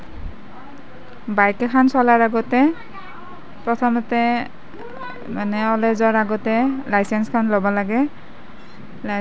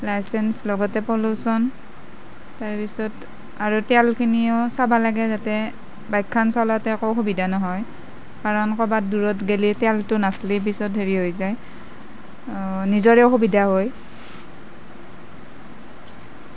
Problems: none marked